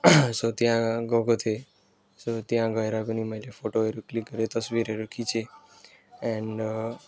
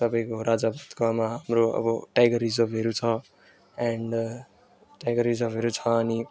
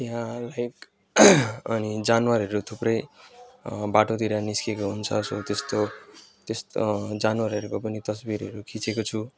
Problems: constant background noise